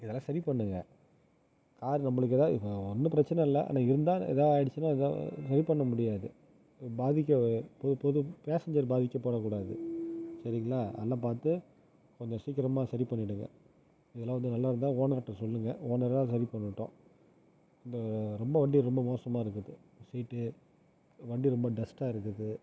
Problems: low volume